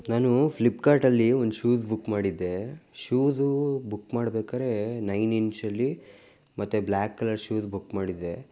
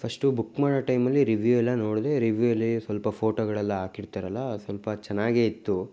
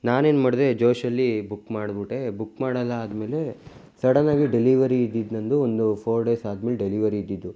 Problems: none marked